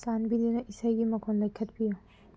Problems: low volume